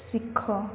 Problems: constant background noise